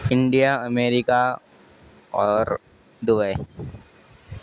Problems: constant background noise